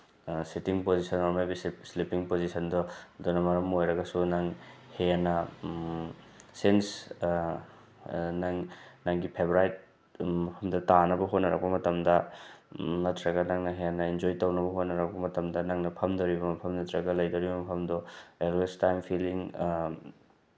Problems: background sounds at intervals